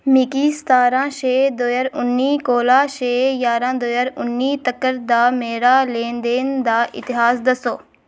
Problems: none marked